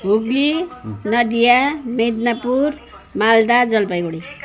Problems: background sounds at intervals